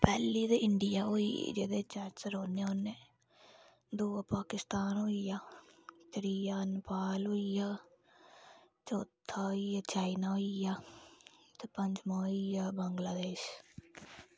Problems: background sounds at intervals, low volume